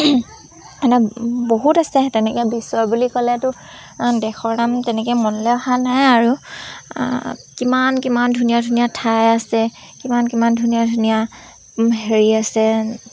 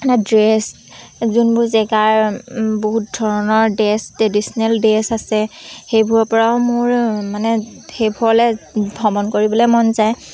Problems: constant background noise